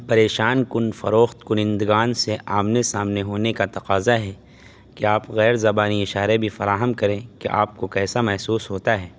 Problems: constant background noise